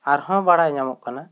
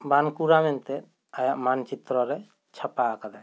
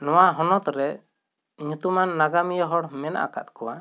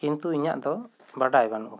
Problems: none marked